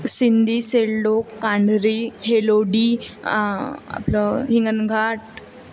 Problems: constant background noise, continuous background conversations